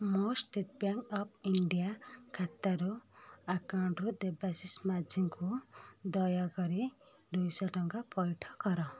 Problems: none marked